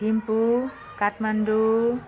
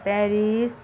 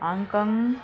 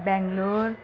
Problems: continuous background conversations